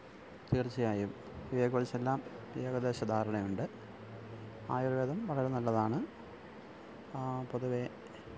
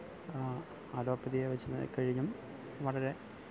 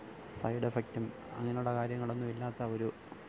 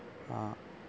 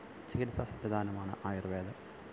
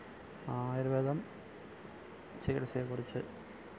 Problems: constant background noise, low volume